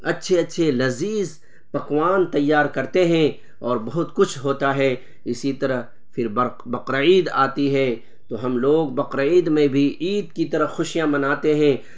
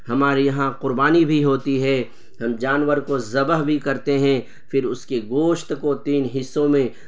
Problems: constant background noise